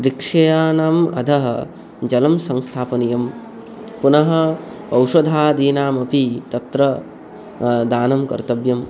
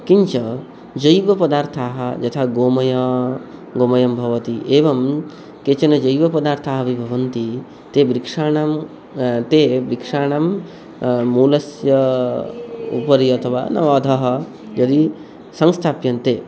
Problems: background sounds at intervals